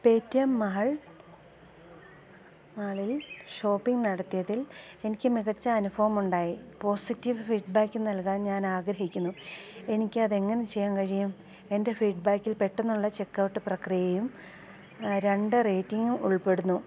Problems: constant background noise, low volume